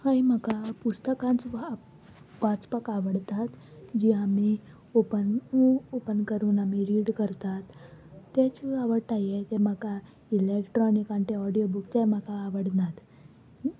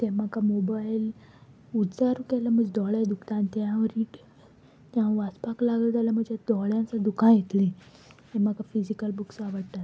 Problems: background sounds at intervals